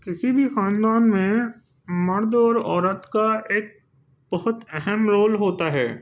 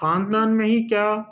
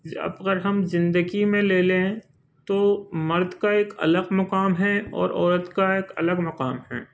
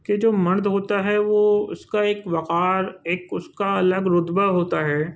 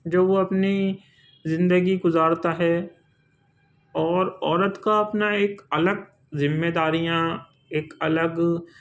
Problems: none marked